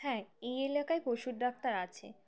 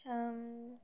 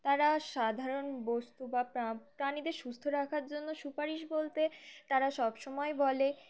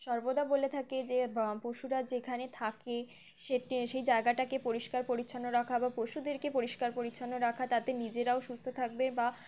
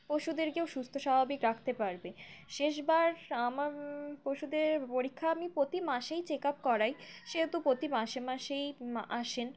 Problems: background sounds at intervals